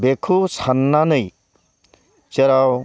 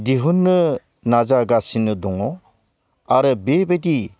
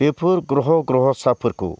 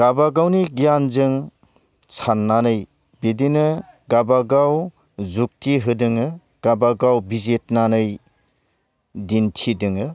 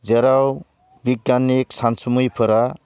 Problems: none marked